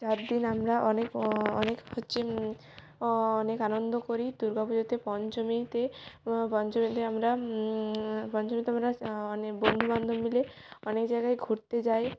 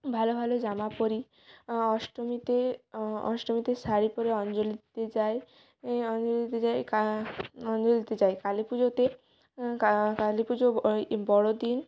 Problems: background sounds at intervals